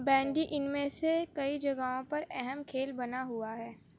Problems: low volume